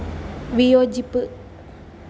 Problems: background sounds at intervals